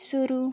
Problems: background sounds at intervals